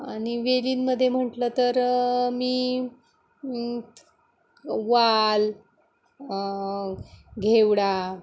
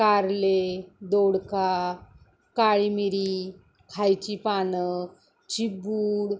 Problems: constant background noise